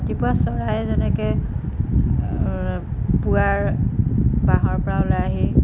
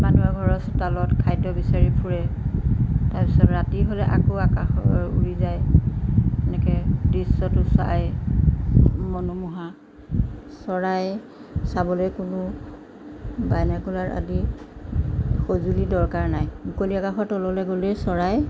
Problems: background sounds at intervals